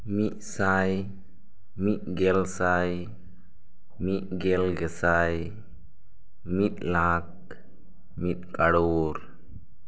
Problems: none marked